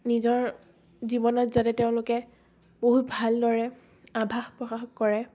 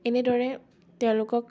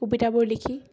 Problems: none marked